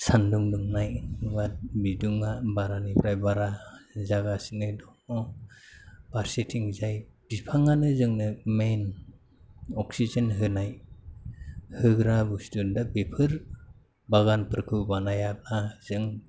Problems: constant background noise